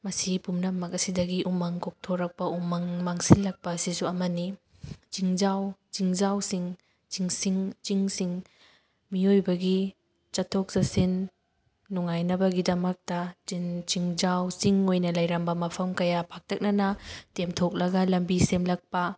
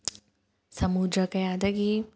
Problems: background sounds at intervals, background conversations at intervals